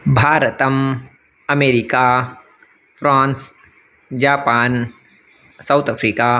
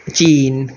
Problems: background sounds at intervals